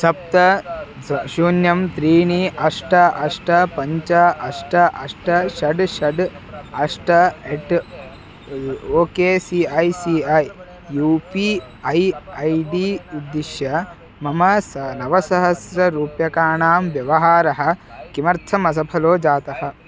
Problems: constant background noise, continuous background conversations